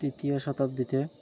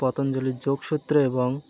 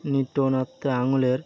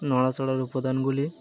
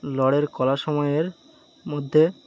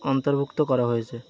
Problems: constant background noise